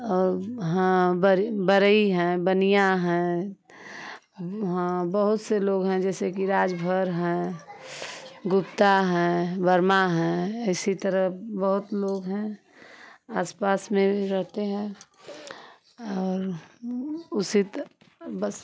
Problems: constant background noise